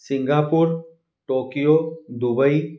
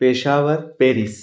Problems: background sounds at intervals